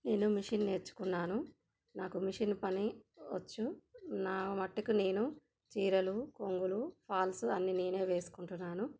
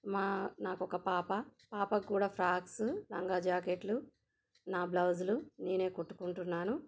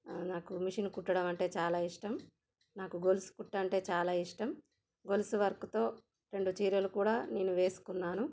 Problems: none marked